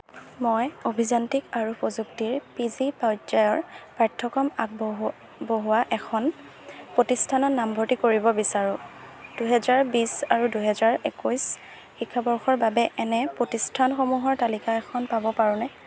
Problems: background sounds at intervals